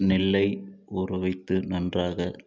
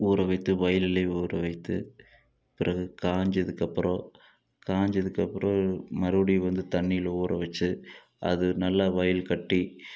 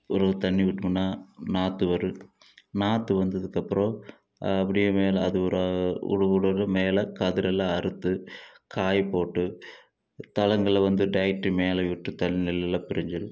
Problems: none marked